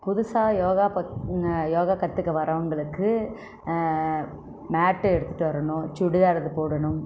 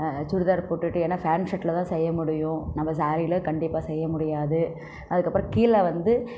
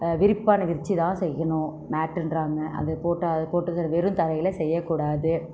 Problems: none marked